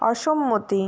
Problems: constant background noise